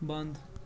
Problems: constant background noise